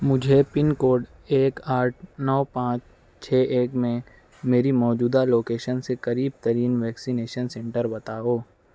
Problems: none marked